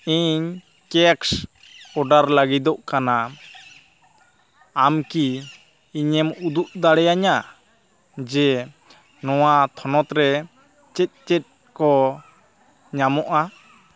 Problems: none marked